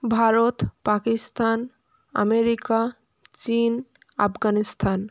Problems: constant background noise